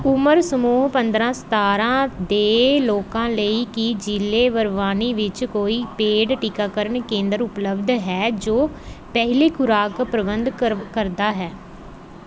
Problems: background sounds at intervals